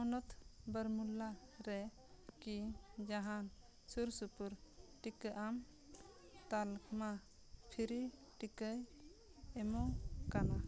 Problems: background sounds at intervals, background conversations at intervals